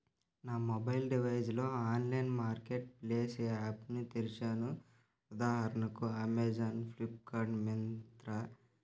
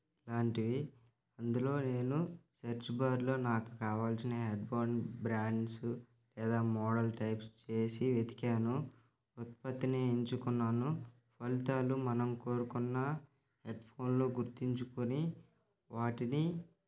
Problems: background sounds at intervals